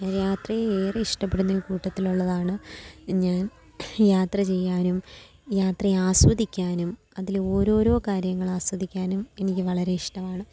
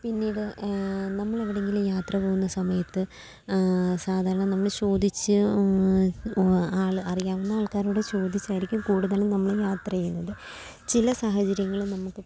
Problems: constant background noise, low volume